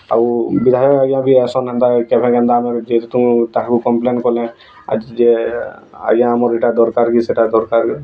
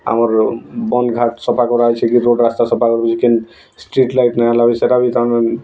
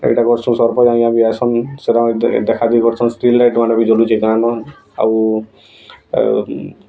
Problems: none marked